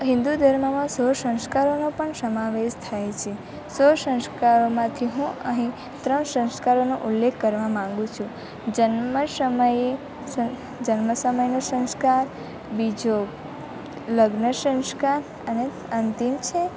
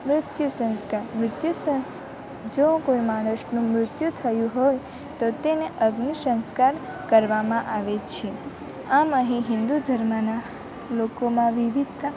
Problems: none marked